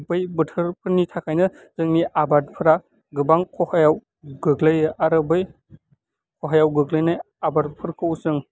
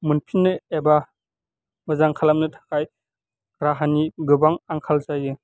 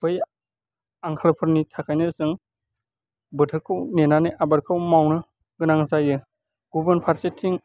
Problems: none marked